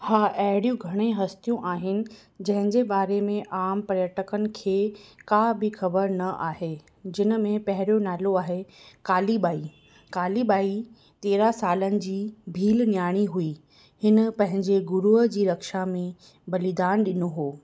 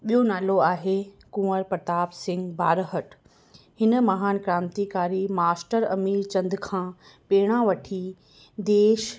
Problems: none marked